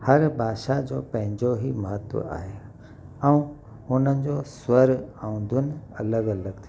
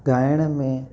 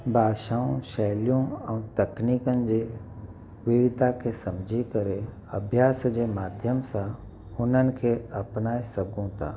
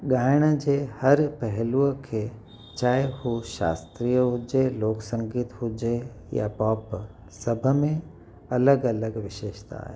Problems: constant background noise, echo